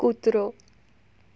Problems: none marked